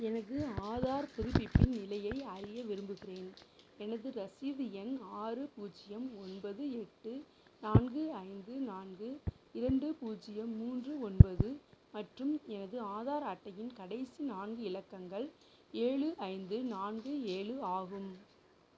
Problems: background sounds at intervals, low volume